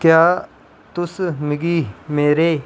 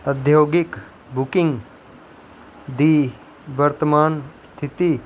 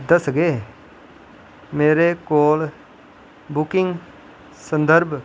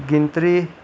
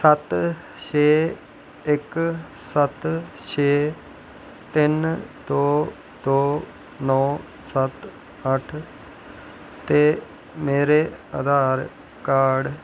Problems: constant background noise